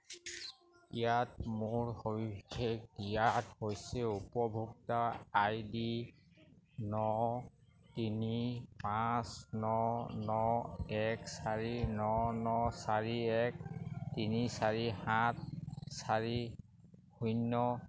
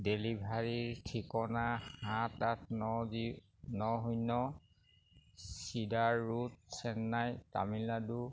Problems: none marked